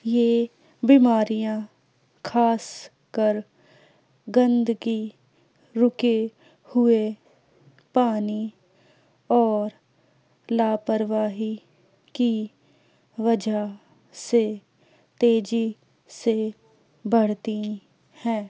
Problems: low volume